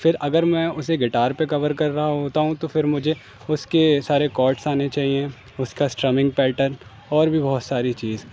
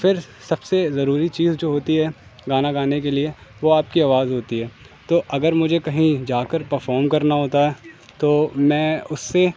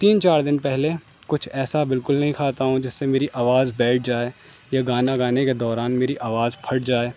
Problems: constant background noise